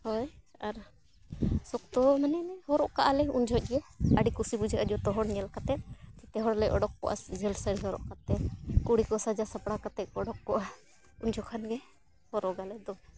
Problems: constant background noise